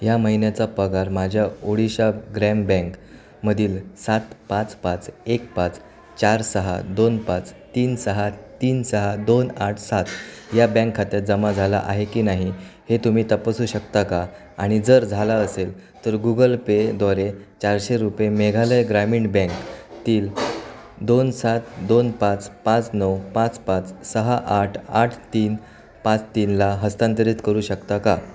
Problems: constant background noise, continuous background conversations